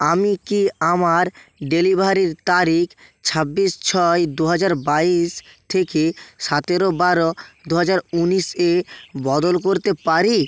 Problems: constant background noise